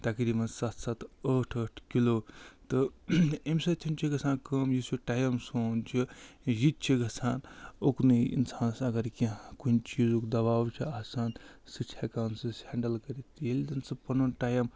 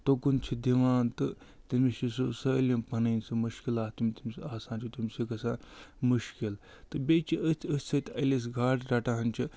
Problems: none marked